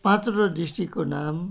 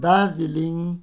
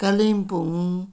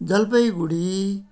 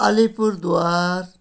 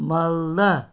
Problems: background sounds at intervals